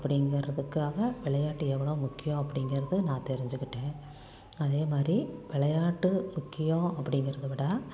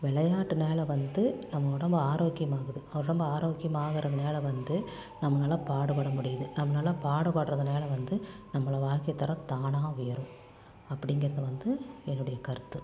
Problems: low volume